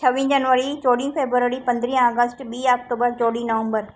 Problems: echo